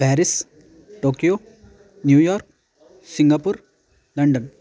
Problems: constant background noise, continuous background conversations